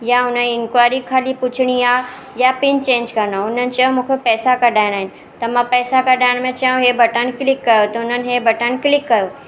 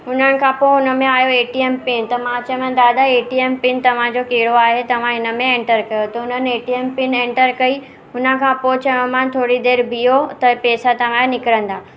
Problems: constant background noise